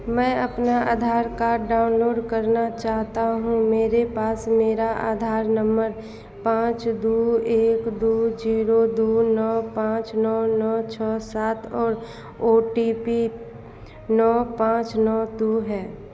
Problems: constant background noise